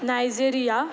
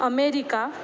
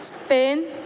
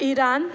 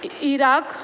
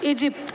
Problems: none marked